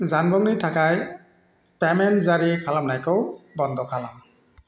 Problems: constant background noise